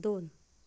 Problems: low volume